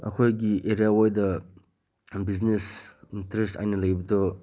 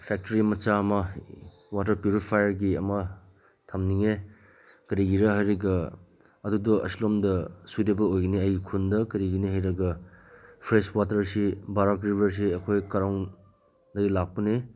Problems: constant background noise